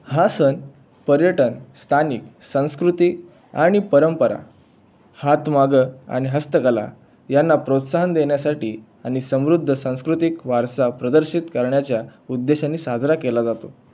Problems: background sounds at intervals